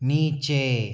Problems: none marked